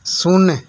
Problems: constant background noise